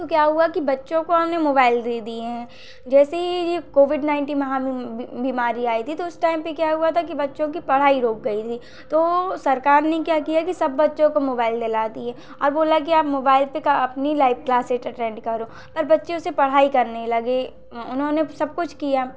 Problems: none marked